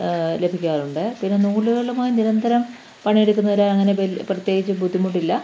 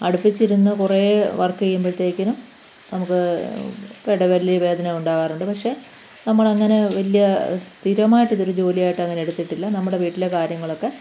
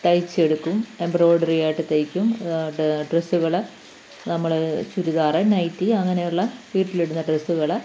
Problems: none marked